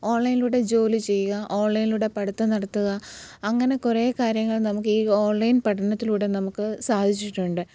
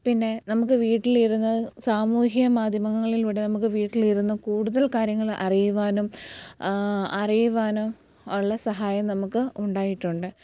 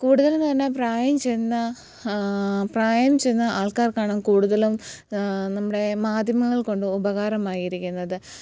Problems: background sounds at intervals